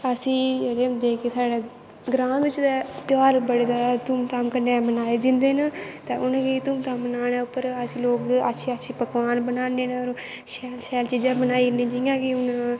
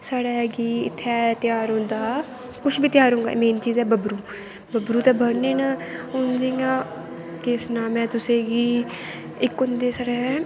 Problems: constant background noise